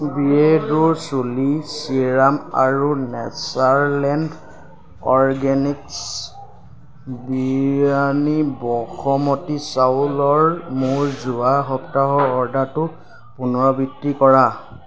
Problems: background sounds at intervals